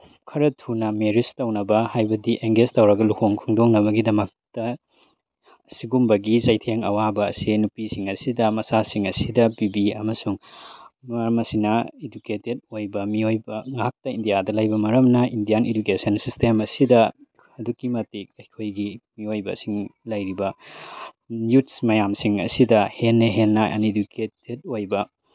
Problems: background sounds at intervals